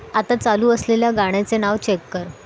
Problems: none marked